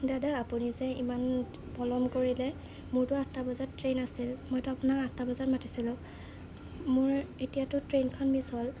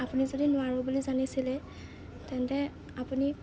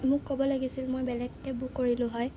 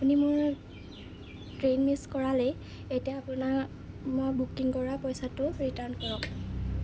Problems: none marked